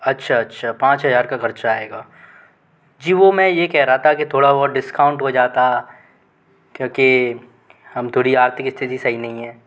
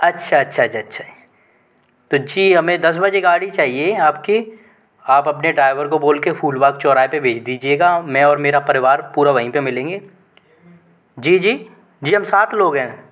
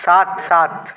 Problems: constant background noise